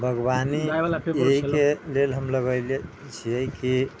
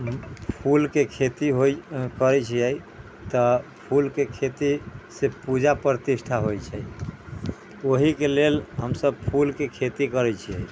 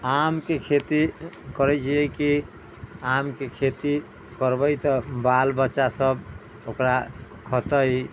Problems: background sounds at intervals, background conversations at intervals